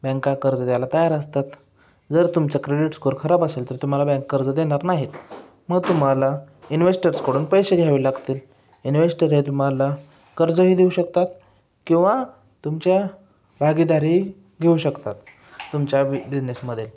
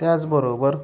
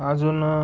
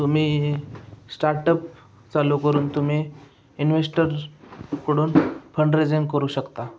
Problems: background sounds at intervals